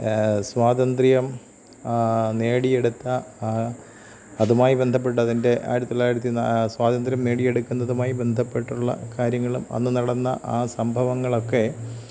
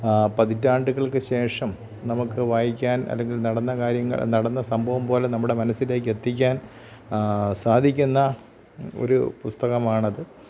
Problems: constant background noise, low volume